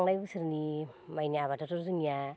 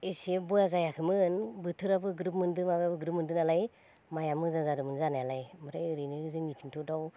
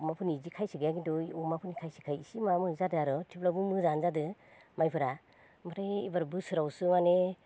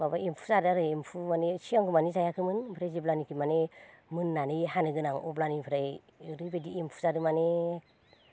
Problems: none marked